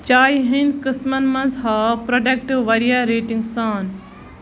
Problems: background sounds at intervals